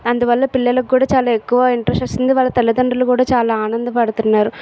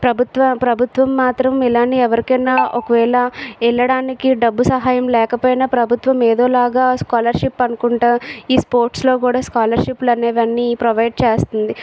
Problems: background sounds at intervals